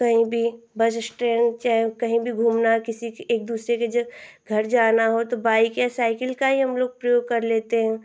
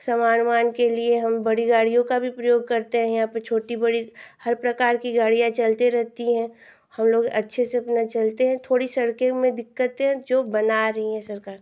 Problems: constant background noise